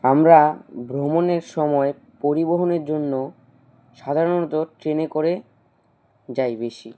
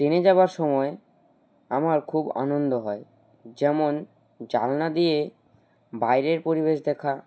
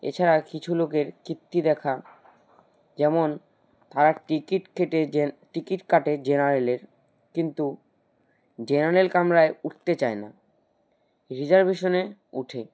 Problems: none marked